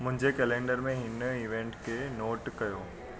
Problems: constant background noise